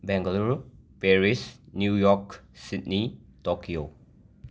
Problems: none marked